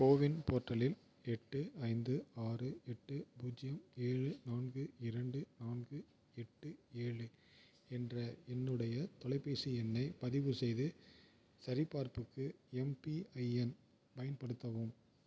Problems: none marked